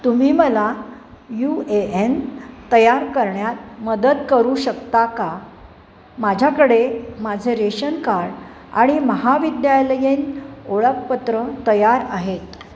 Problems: none marked